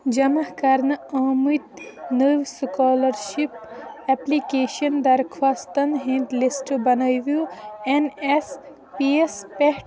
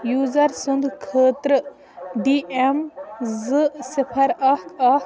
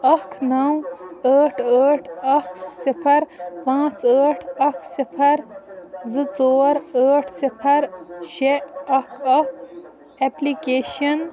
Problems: background sounds at intervals, continuous background conversations